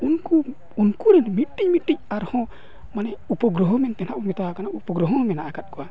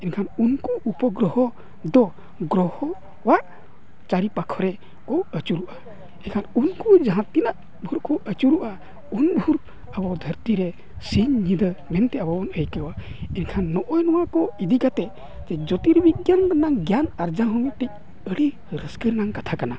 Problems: continuous background conversations